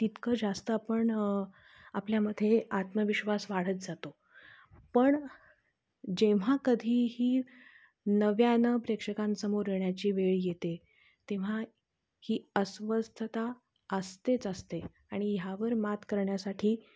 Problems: constant background noise, low volume